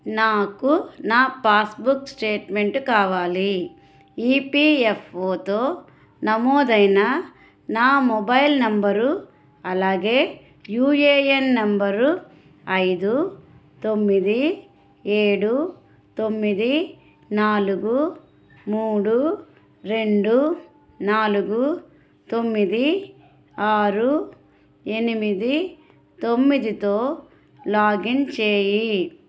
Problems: none marked